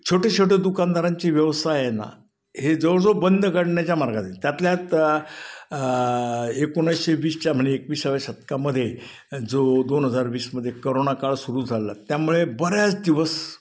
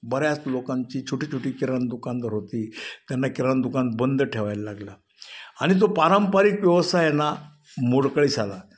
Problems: background sounds at intervals, echo